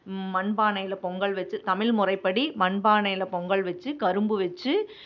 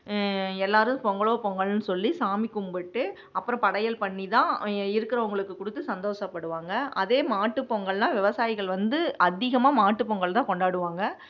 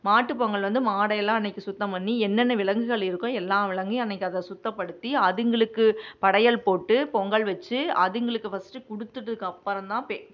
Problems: none marked